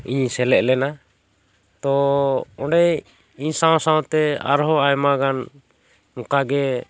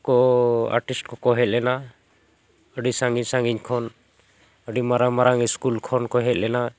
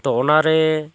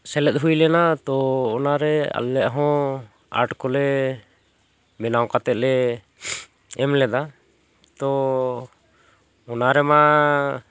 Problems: none marked